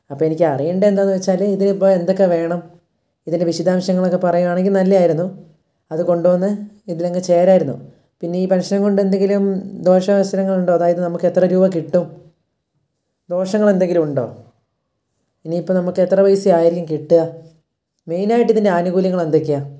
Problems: none marked